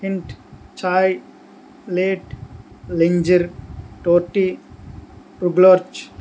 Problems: constant background noise